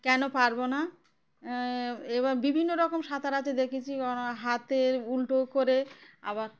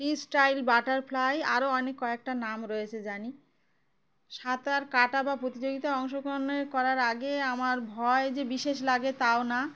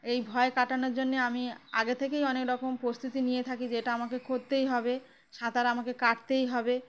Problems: constant background noise